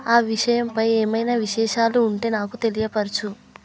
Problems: constant background noise